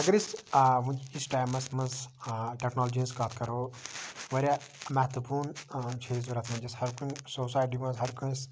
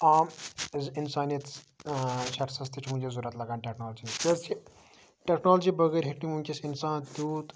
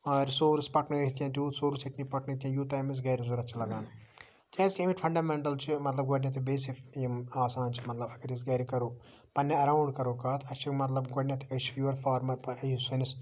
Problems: none marked